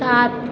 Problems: constant background noise